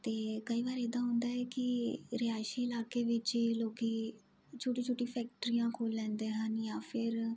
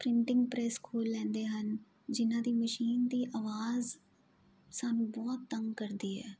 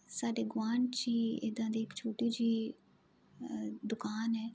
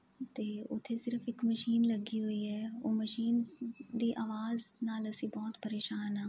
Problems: none marked